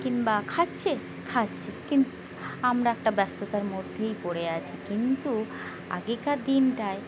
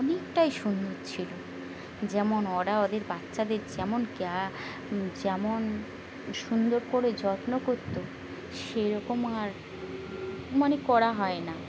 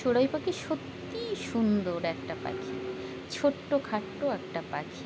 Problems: constant background noise, background conversations at intervals